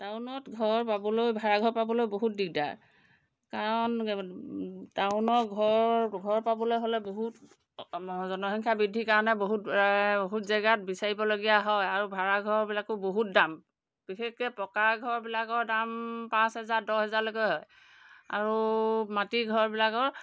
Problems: background sounds at intervals